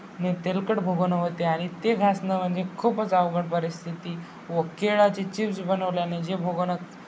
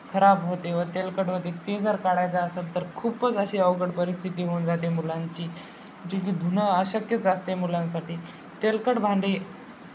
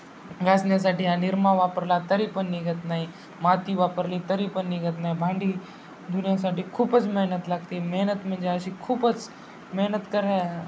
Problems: constant background noise, background conversations at intervals